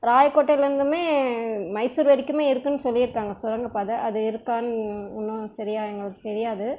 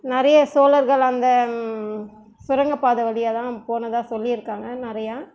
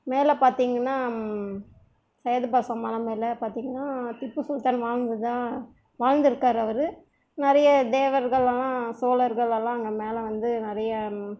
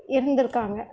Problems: none marked